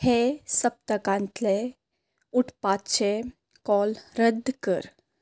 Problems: constant background noise